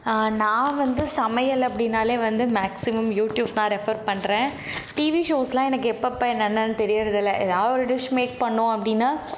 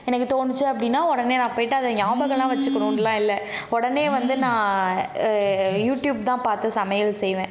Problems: background sounds at intervals